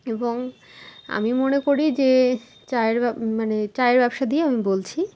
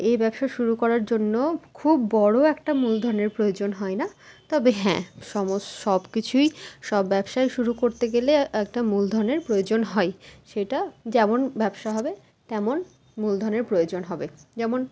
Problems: constant background noise